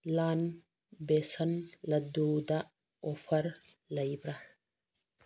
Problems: none marked